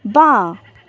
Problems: constant background noise